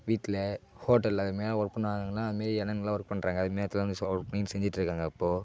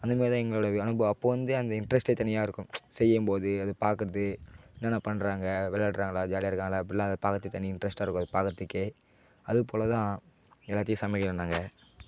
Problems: background sounds at intervals